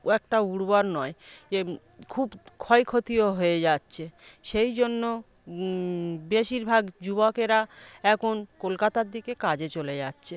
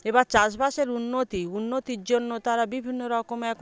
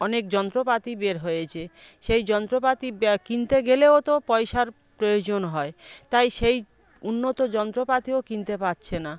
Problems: background conversations at intervals